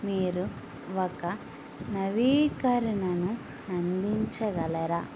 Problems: constant background noise